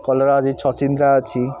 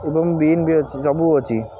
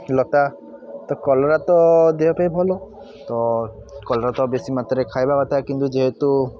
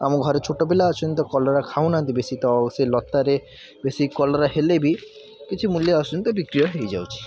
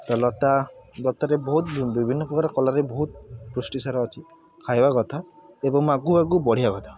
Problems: background sounds at intervals